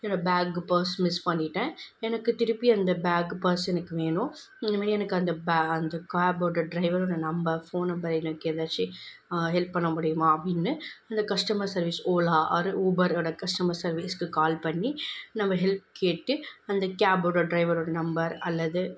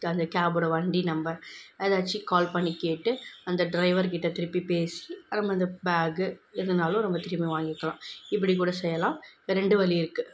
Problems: background sounds at intervals